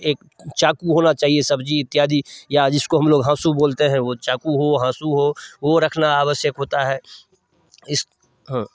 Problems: background sounds at intervals